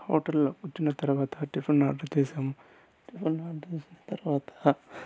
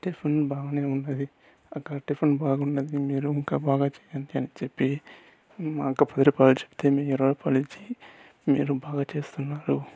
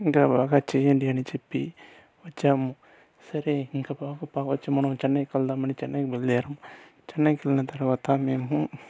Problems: none marked